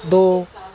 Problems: constant background noise